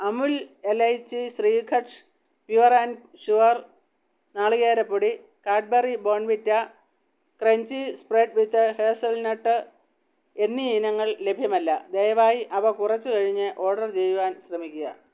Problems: background sounds at intervals